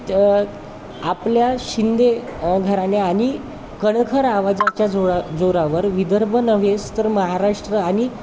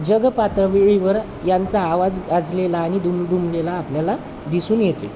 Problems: constant background noise, continuous background conversations